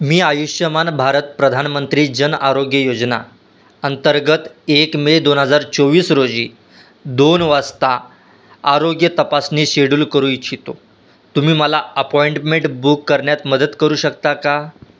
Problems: constant background noise